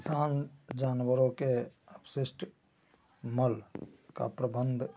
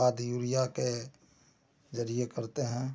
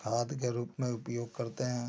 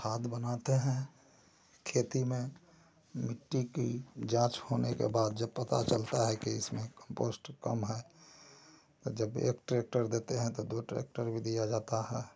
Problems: constant background noise, low volume